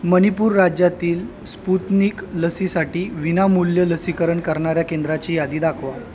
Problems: constant background noise